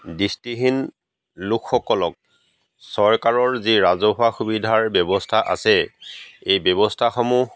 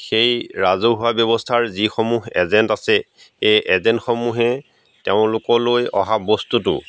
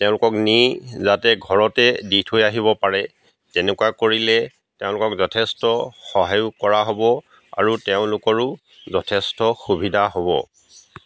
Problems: background sounds at intervals